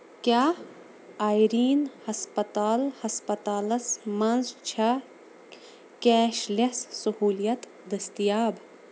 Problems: constant background noise